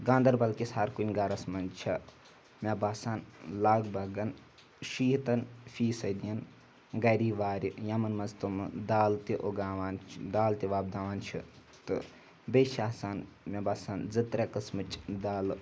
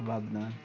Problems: background sounds at intervals